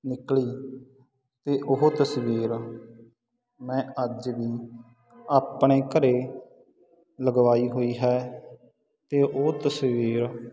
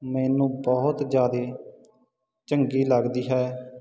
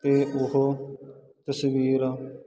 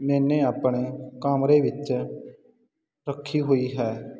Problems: constant background noise